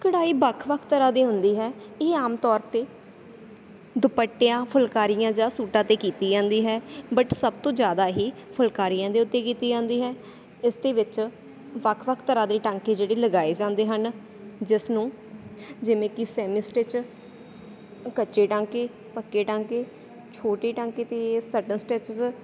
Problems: none marked